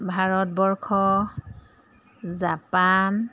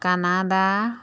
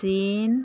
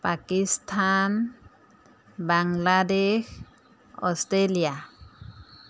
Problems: none marked